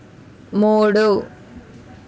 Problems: constant background noise